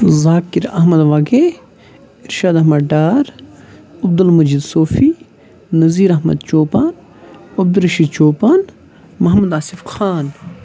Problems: constant background noise